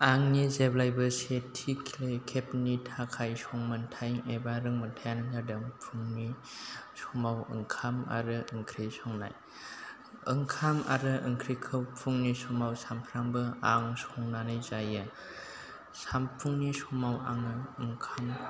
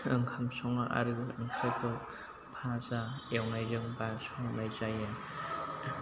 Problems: constant background noise